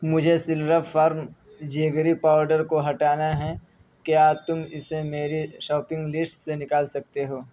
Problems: constant background noise